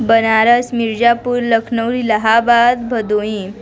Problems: constant background noise, continuous background conversations